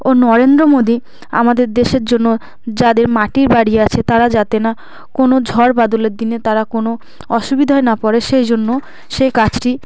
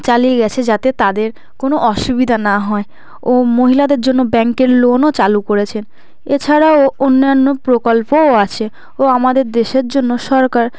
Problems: none marked